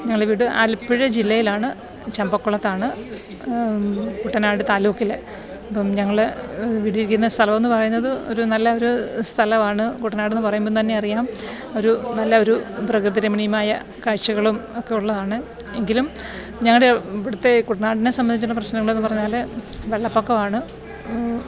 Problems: background sounds at intervals